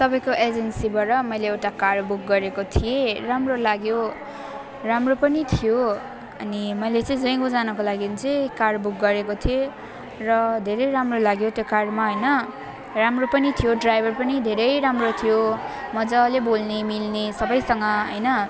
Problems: constant background noise